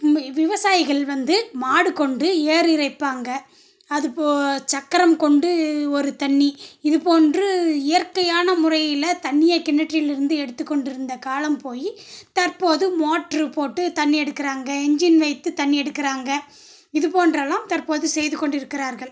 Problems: none marked